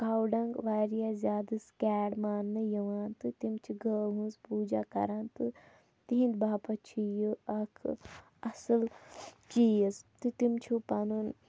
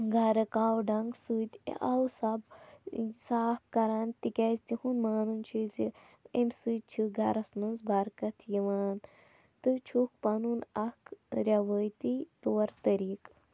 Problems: low volume